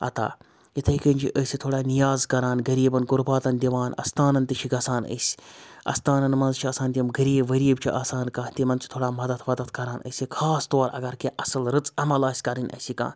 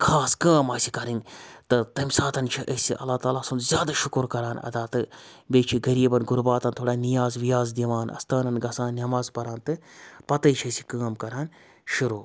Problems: constant background noise